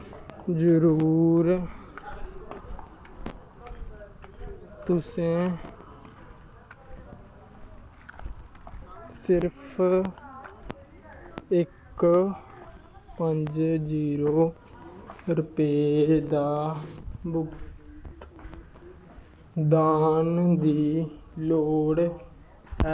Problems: constant background noise, echo